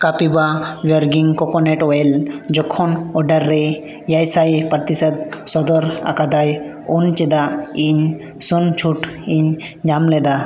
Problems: echo